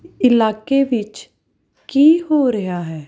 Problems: background sounds at intervals